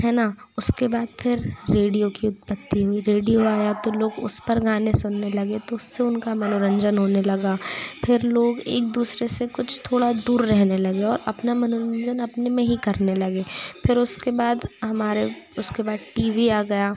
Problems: background sounds at intervals, continuous background conversations